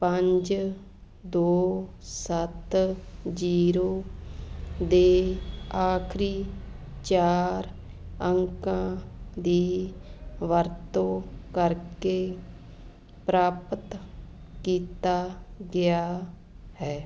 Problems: background sounds at intervals